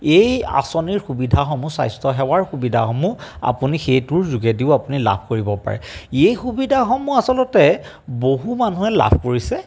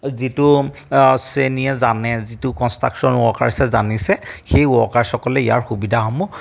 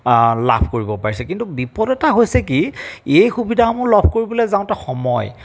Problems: background sounds at intervals